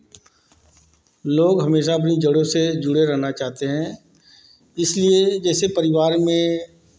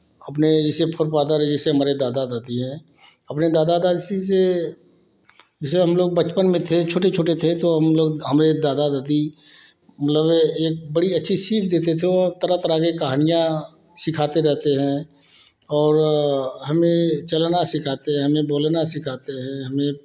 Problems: constant background noise